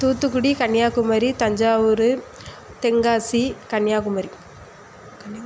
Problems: constant background noise